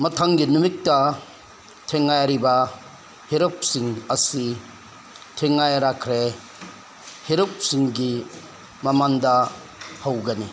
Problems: constant background noise